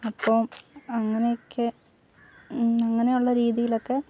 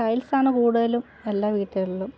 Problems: low volume